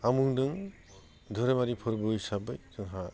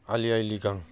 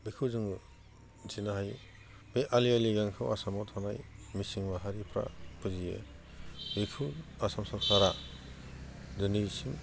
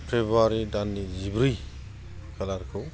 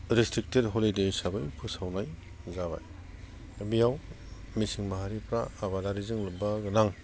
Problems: none marked